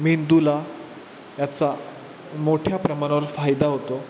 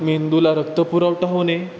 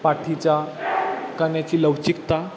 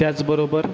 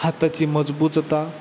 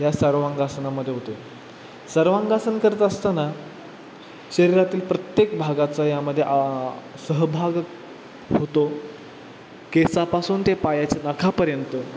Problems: constant background noise